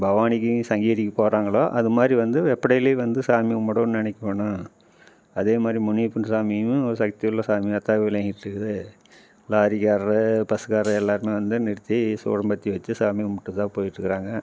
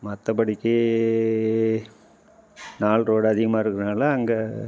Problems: none marked